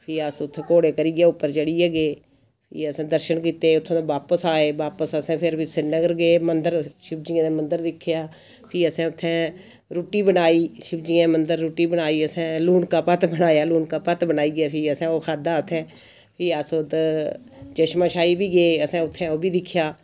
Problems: none marked